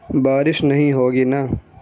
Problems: background sounds at intervals